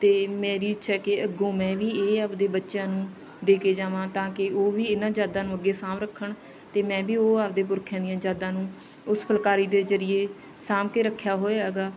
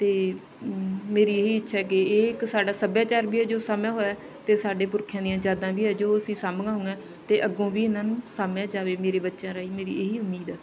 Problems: background sounds at intervals, background conversations at intervals